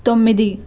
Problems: none marked